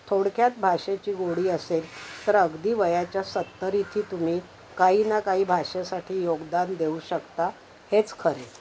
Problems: constant background noise